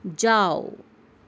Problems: none marked